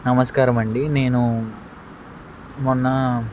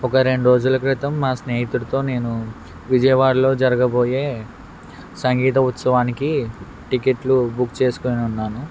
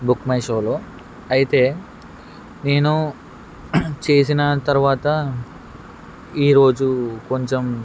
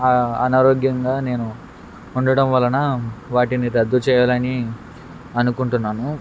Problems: constant background noise